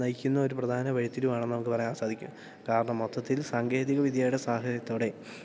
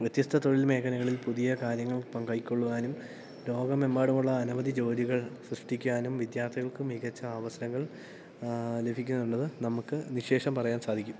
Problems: none marked